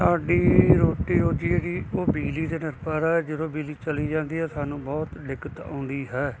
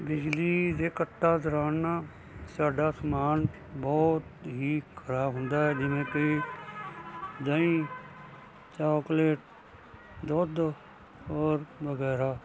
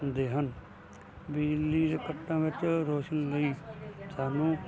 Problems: constant background noise